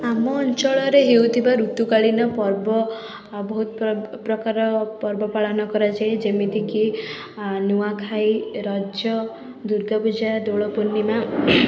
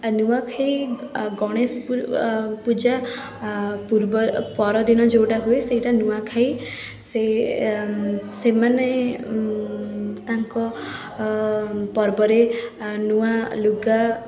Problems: none marked